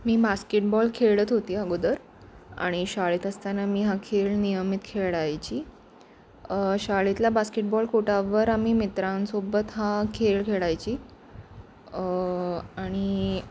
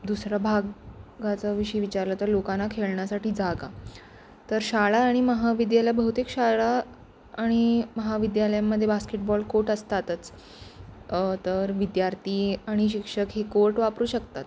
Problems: none marked